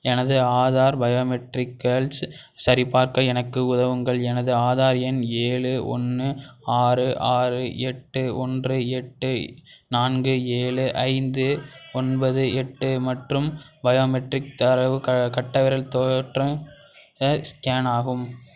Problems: background sounds at intervals, background conversations at intervals